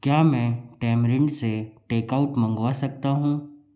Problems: none marked